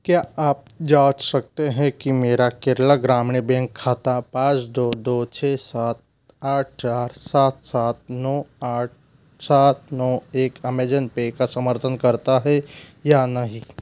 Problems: none marked